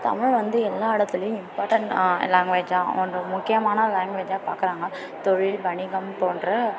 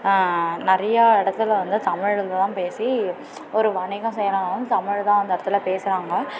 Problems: constant background noise